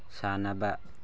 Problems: low volume